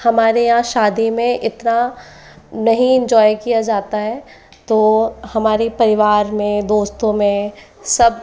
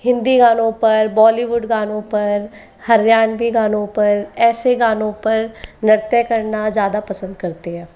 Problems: continuous background conversations